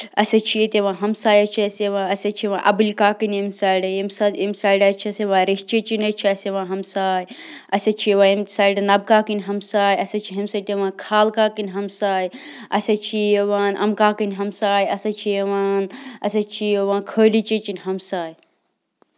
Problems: constant background noise